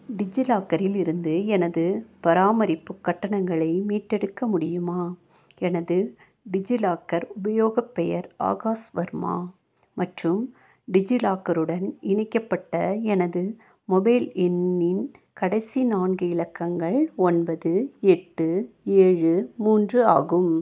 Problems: none marked